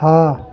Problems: none marked